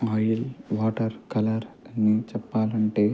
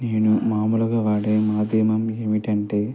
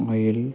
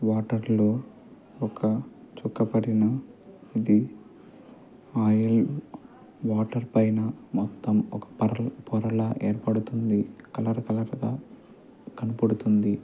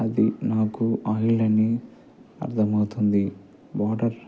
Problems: constant background noise, low volume